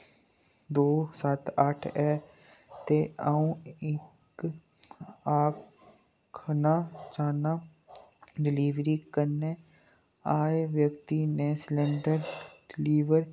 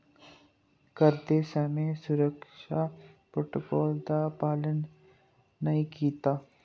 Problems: low volume